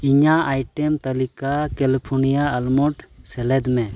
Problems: none marked